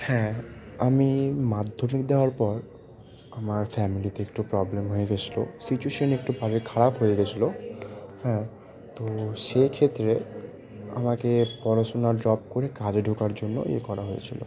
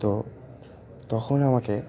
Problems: constant background noise